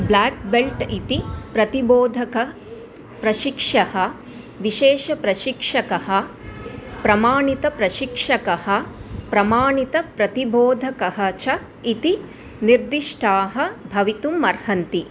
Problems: none marked